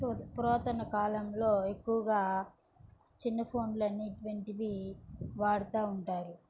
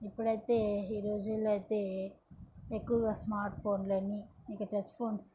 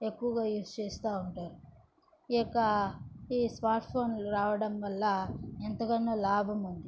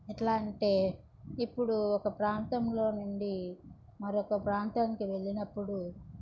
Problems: none marked